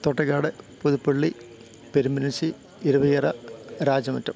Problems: constant background noise